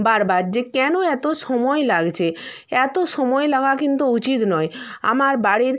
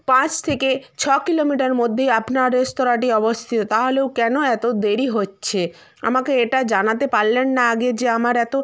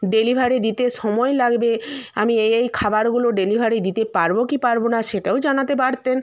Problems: constant background noise